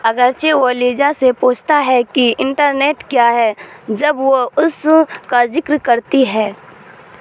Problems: constant background noise